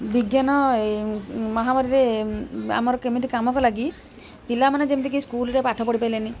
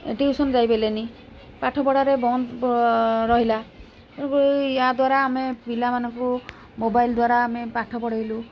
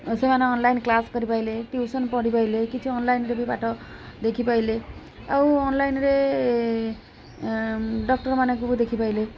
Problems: constant background noise